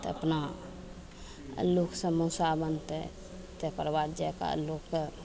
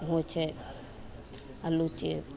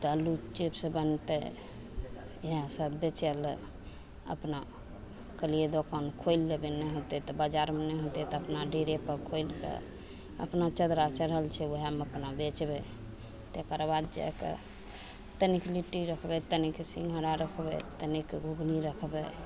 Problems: none marked